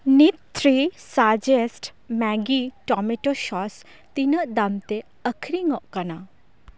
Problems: none marked